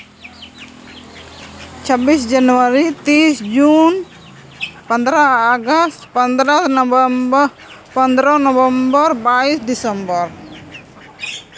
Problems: constant background noise